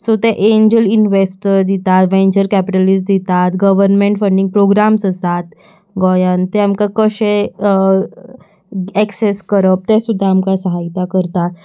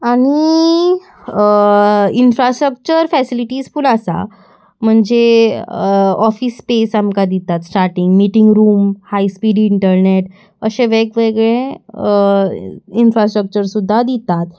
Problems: constant background noise